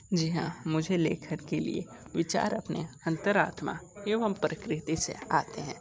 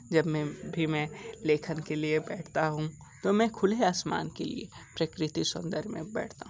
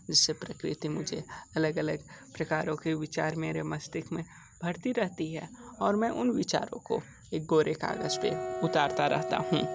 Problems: background sounds at intervals, background conversations at intervals